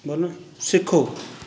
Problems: background conversations at intervals